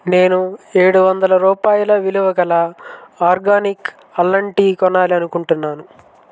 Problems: none marked